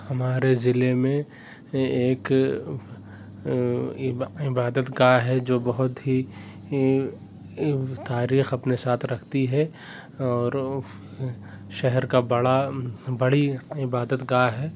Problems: background sounds at intervals